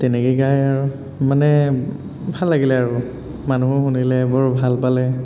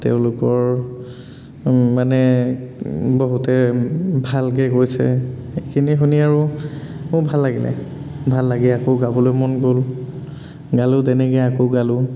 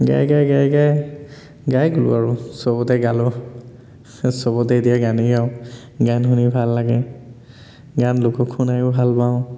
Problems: constant background noise, echo